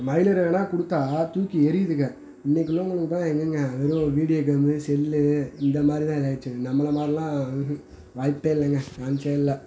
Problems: background sounds at intervals